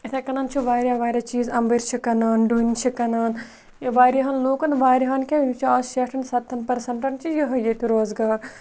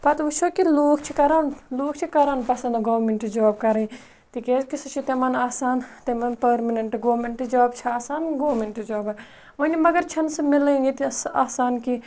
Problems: none marked